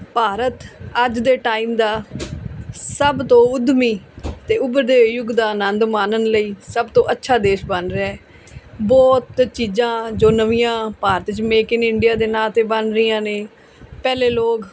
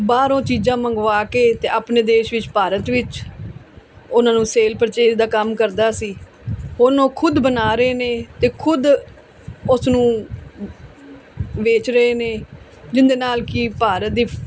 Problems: background sounds at intervals